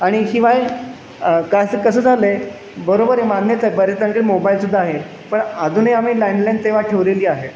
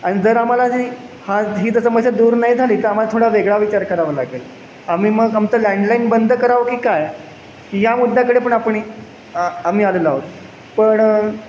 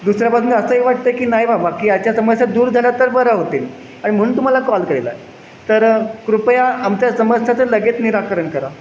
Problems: none marked